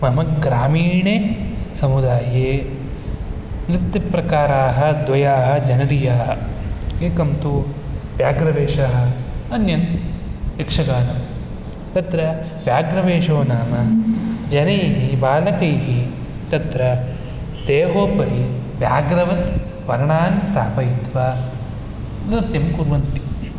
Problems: none marked